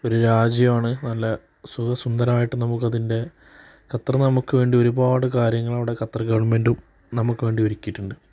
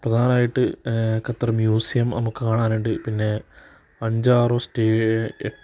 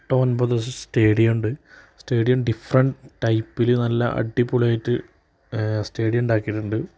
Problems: background sounds at intervals